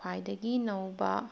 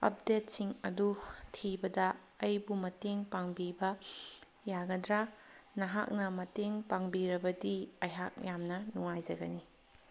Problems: none marked